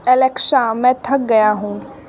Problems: constant background noise